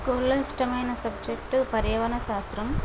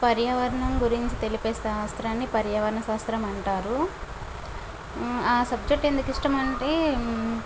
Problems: constant background noise